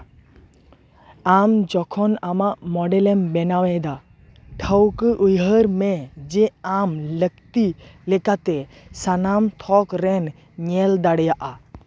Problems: none marked